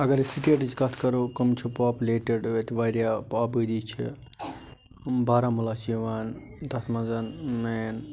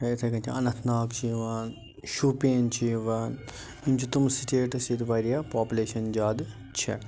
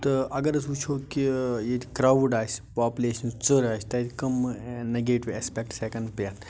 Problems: background sounds at intervals